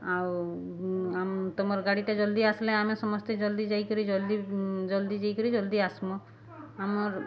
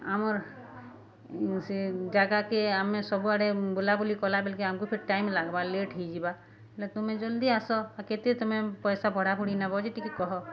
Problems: constant background noise, continuous background conversations